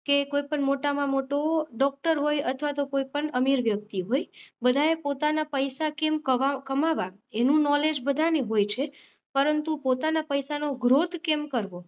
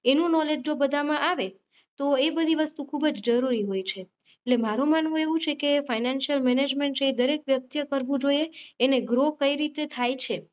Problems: none marked